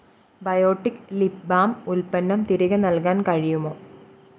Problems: none marked